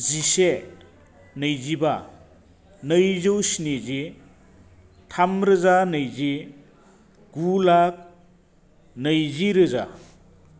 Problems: constant background noise